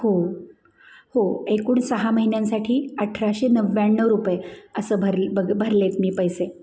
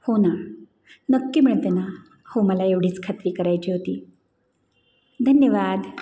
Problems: background sounds at intervals, background conversations at intervals